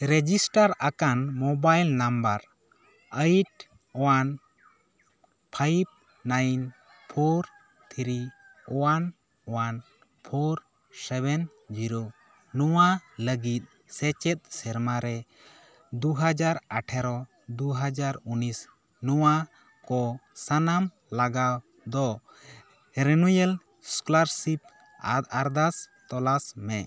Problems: background sounds at intervals, background conversations at intervals